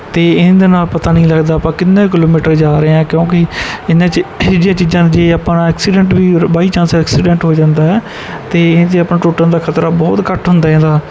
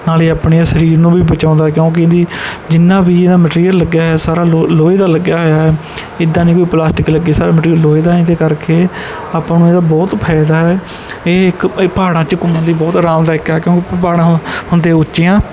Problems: background sounds at intervals